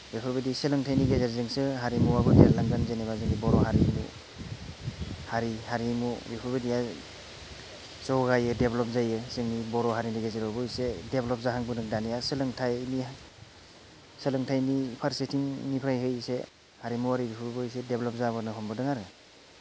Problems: none marked